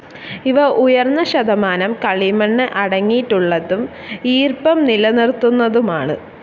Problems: none marked